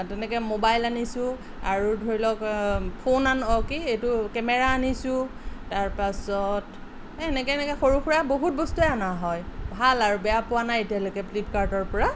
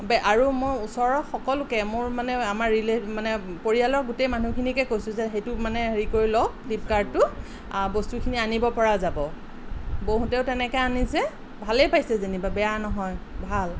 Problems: none marked